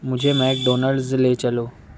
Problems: constant background noise